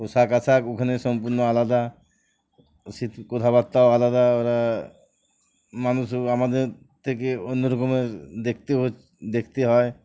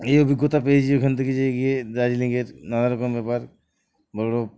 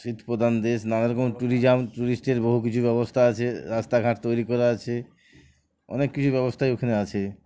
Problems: none marked